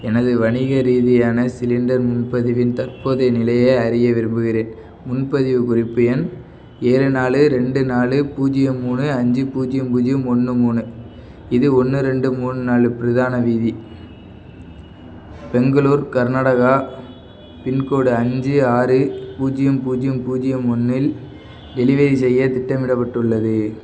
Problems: background sounds at intervals